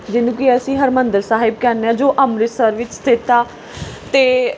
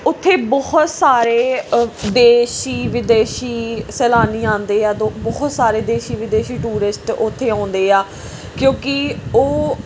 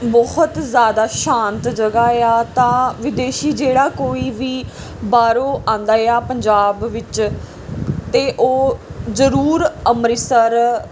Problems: background sounds at intervals